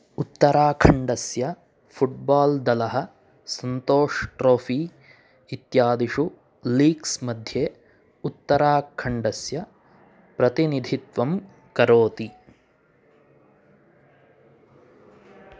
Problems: none marked